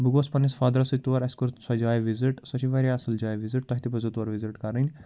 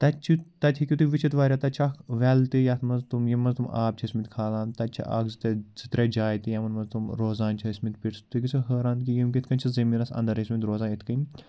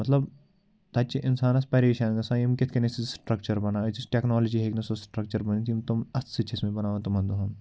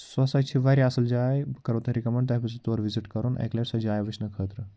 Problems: none marked